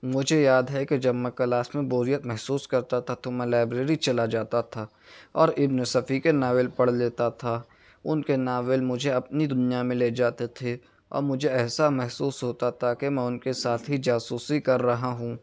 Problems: none marked